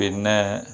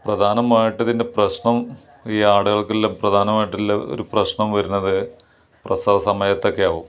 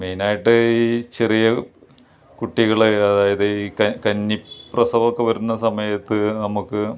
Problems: none marked